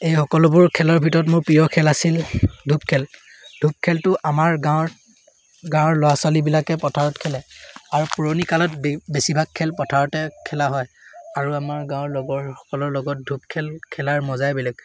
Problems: none marked